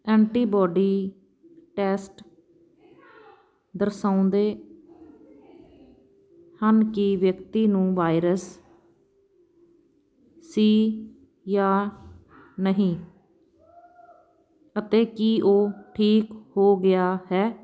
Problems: constant background noise